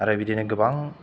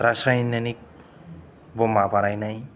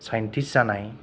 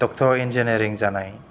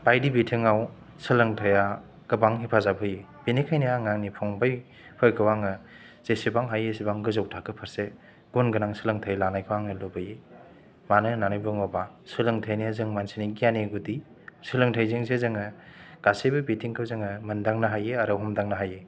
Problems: none marked